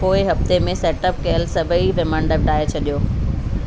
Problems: constant background noise, echo